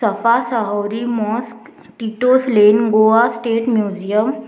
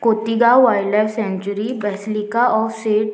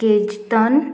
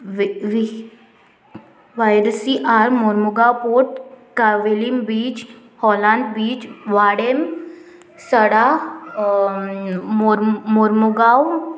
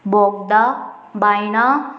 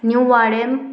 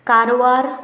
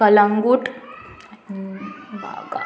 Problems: constant background noise